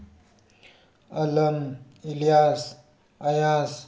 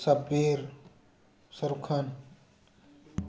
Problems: background conversations at intervals